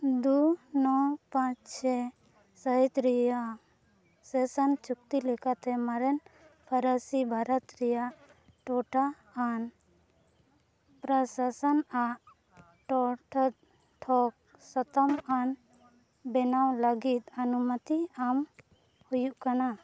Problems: constant background noise, low volume